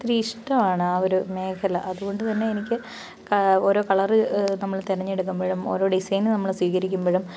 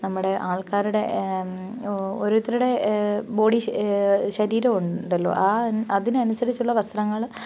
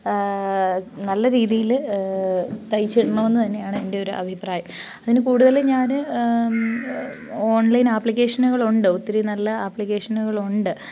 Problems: background sounds at intervals